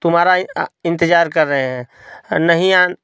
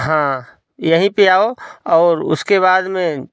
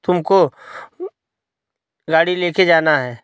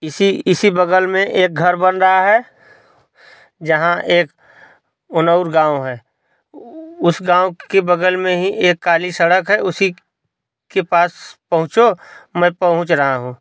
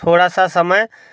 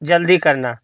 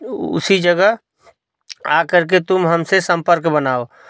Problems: constant background noise